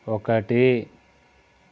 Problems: constant background noise